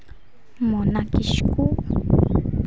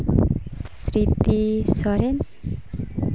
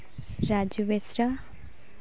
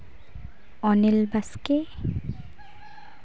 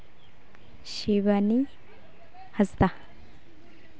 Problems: continuous background conversations